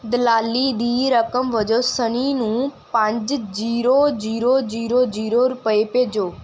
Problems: none marked